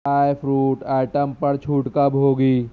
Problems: none marked